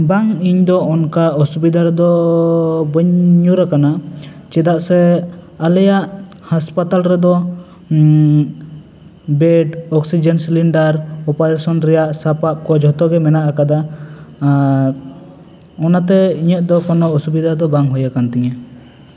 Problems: constant background noise, background conversations at intervals, echo